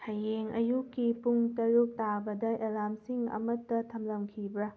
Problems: background sounds at intervals